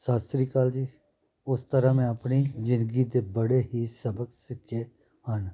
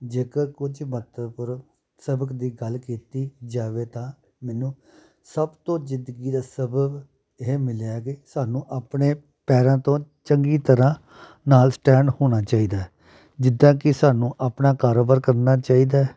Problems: none marked